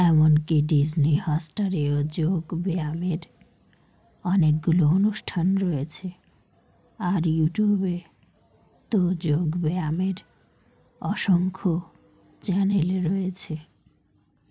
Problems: none marked